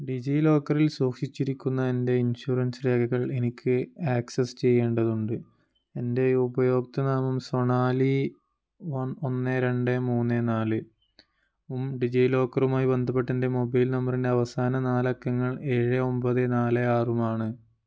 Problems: none marked